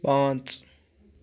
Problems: none marked